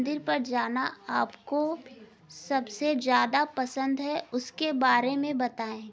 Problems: background sounds at intervals, background conversations at intervals